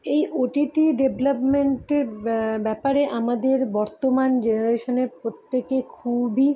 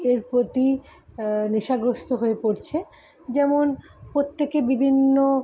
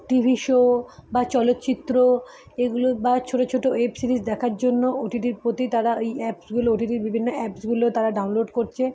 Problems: none marked